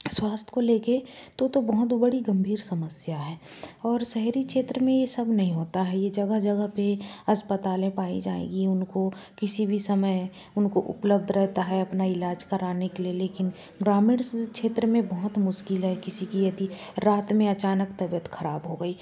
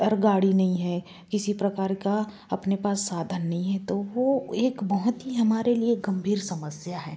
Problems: background sounds at intervals